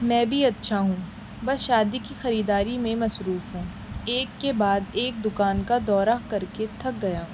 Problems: constant background noise